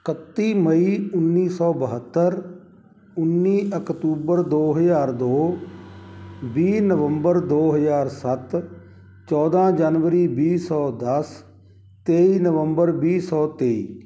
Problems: none marked